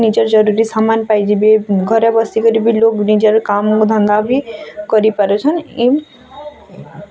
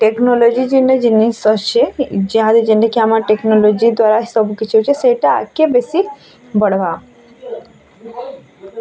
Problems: constant background noise, continuous background conversations